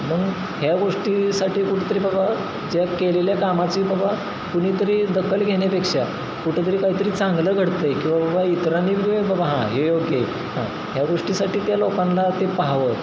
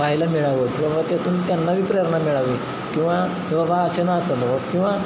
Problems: constant background noise